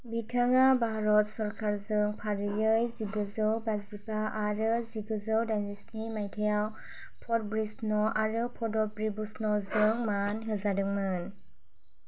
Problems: none marked